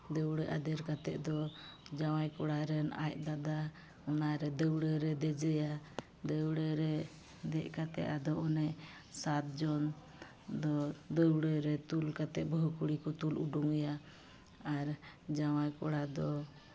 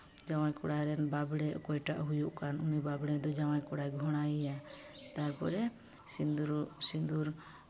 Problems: background sounds at intervals